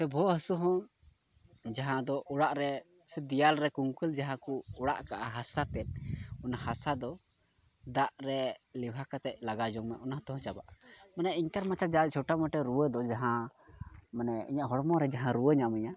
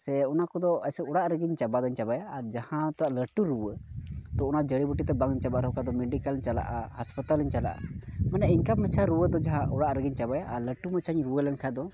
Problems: none marked